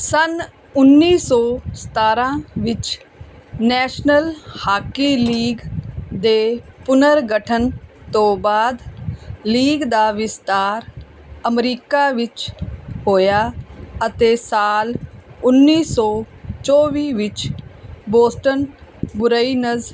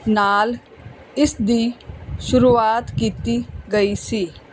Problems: background sounds at intervals